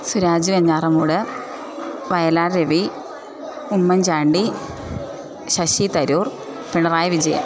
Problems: constant background noise